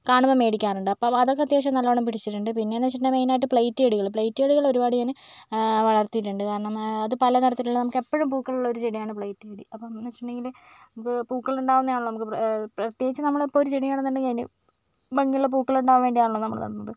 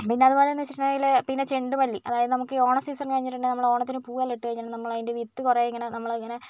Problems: none marked